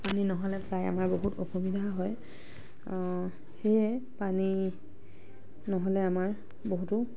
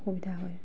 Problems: background sounds at intervals, background conversations at intervals